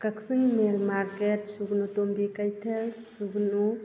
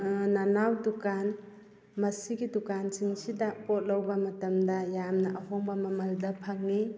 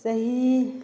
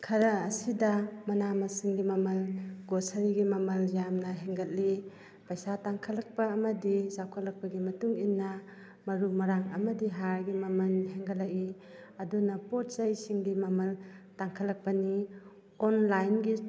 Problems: background conversations at intervals